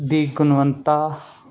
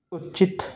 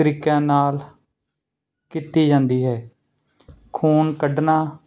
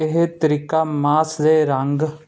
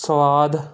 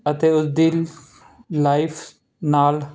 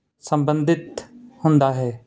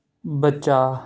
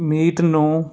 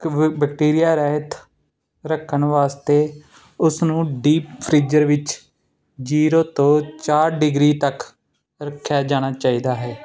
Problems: none marked